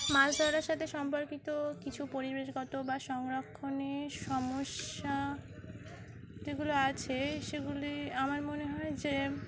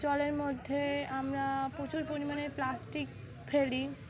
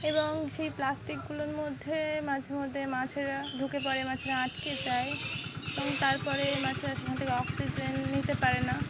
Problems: constant background noise